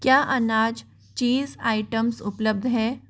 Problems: constant background noise